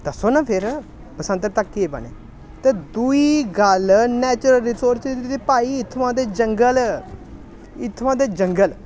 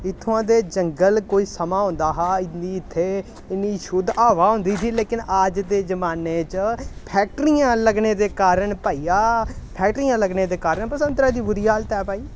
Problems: none marked